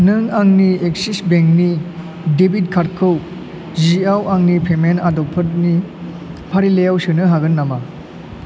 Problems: none marked